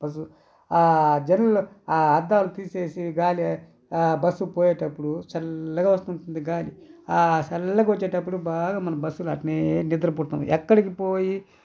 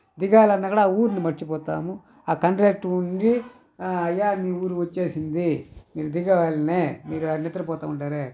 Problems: constant background noise